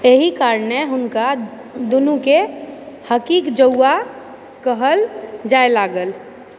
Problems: none marked